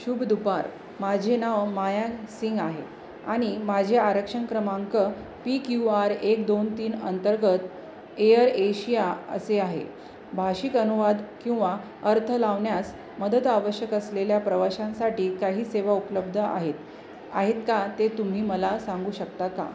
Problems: none marked